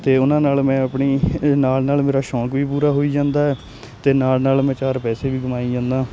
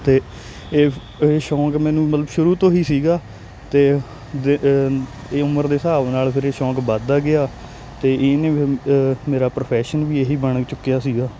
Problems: none marked